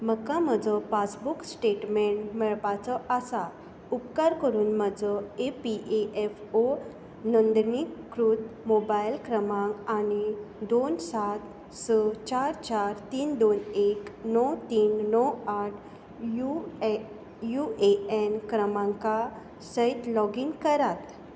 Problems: background sounds at intervals